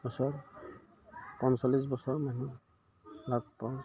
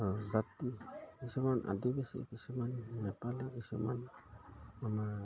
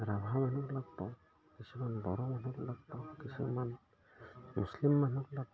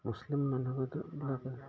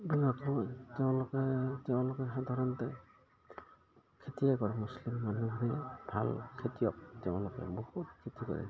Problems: background sounds at intervals